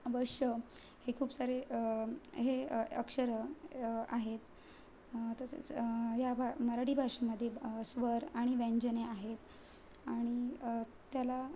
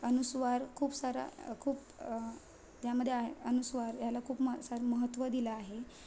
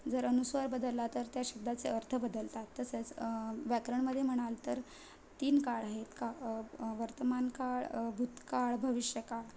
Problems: constant background noise